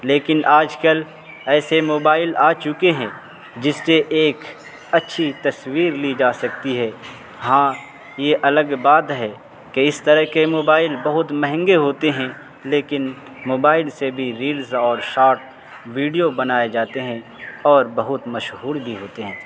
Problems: constant background noise